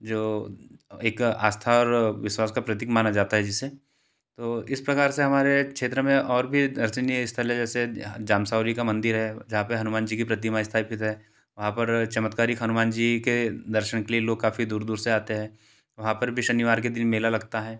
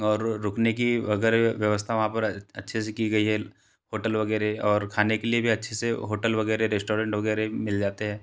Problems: constant background noise